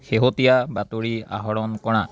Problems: background conversations at intervals